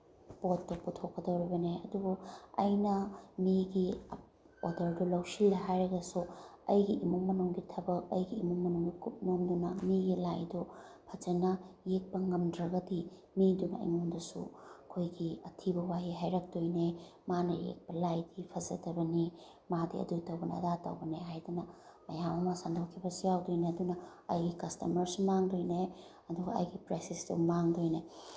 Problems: none marked